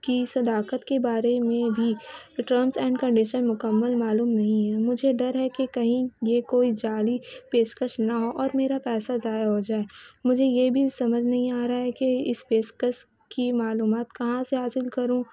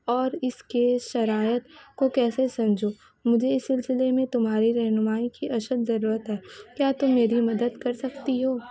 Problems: background sounds at intervals